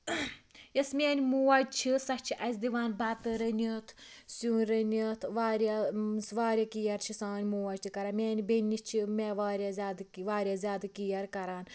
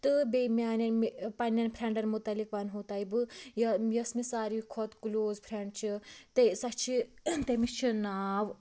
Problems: constant background noise